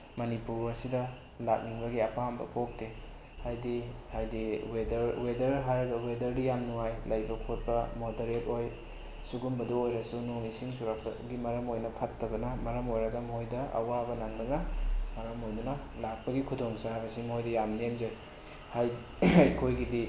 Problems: background sounds at intervals